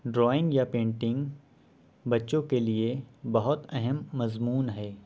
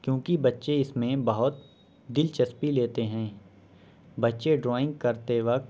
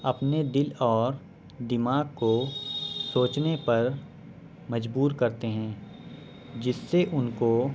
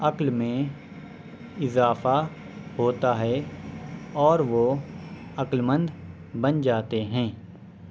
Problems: none marked